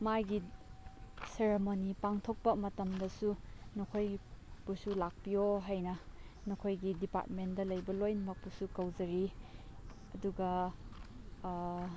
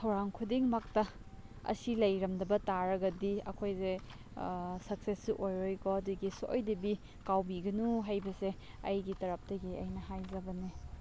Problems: background sounds at intervals, low volume